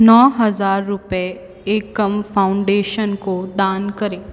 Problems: echo